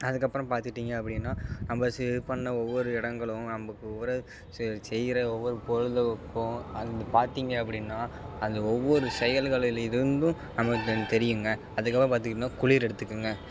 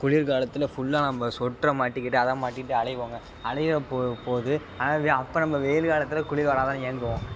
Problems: constant background noise